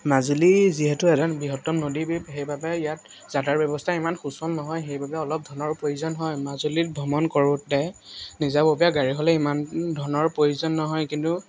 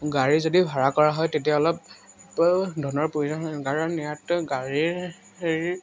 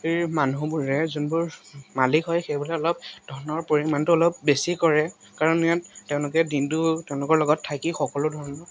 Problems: none marked